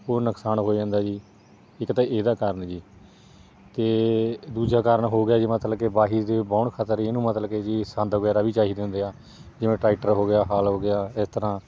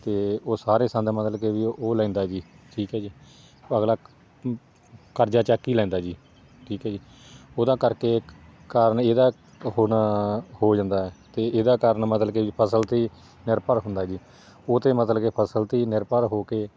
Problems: none marked